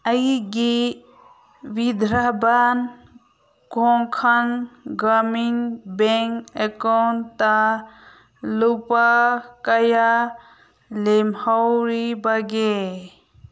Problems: none marked